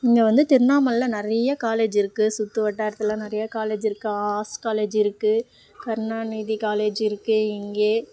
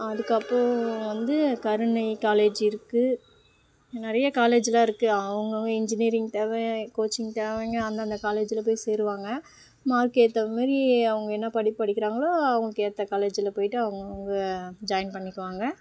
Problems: none marked